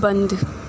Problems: constant background noise